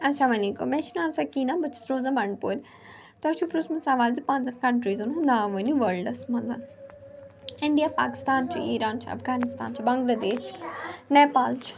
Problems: continuous background conversations